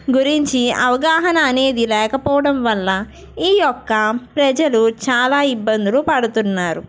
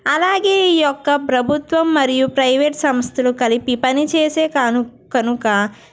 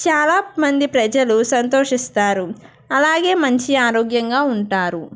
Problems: background sounds at intervals